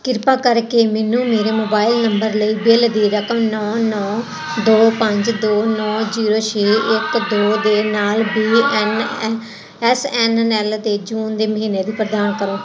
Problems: constant background noise